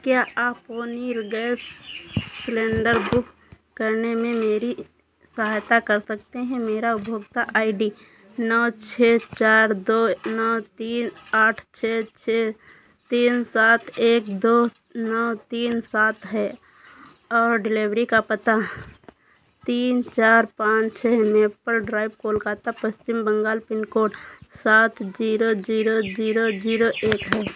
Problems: constant background noise